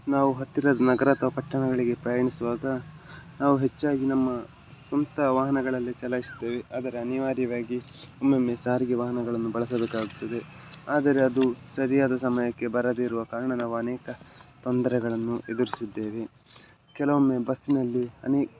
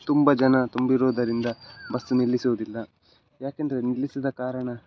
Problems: none marked